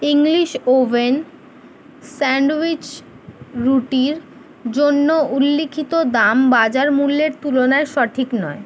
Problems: none marked